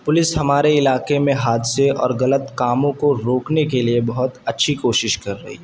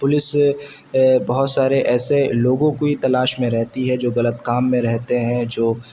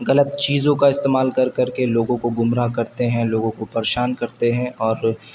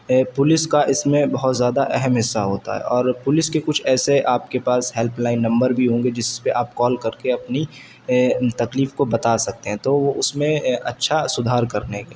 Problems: constant background noise